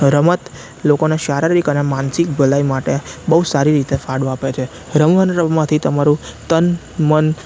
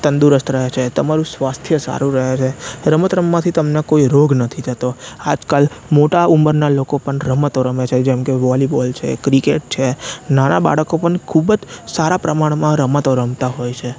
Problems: constant background noise